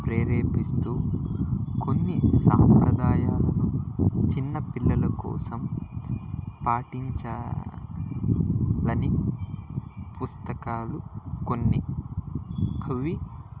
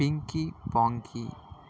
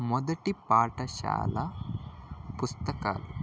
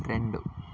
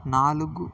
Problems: constant background noise